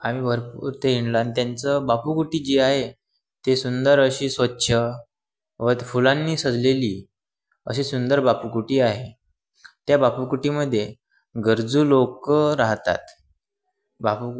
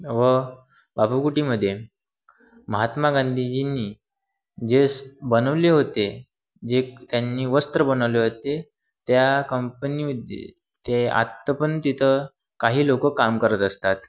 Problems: background sounds at intervals